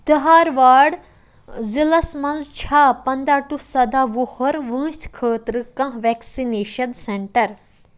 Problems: constant background noise